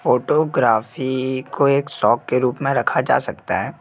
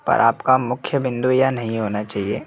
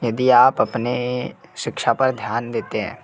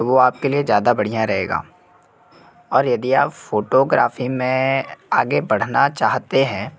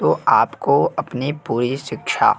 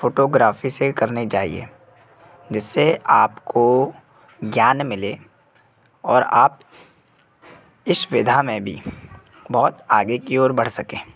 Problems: constant background noise, background conversations at intervals